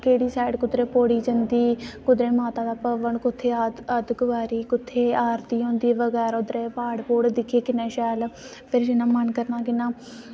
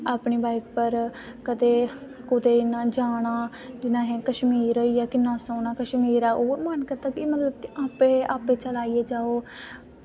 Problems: constant background noise